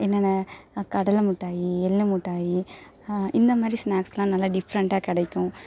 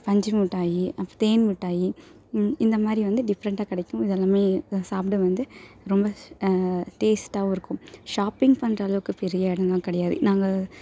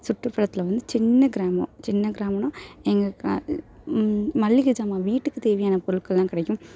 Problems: none marked